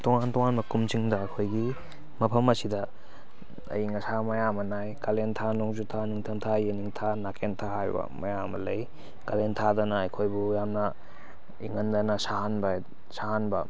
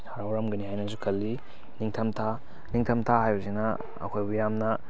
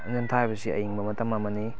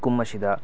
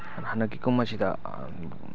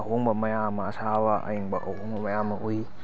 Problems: background conversations at intervals